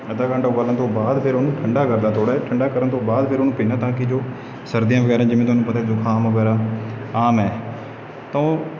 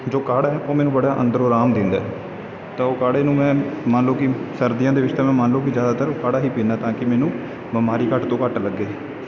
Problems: none marked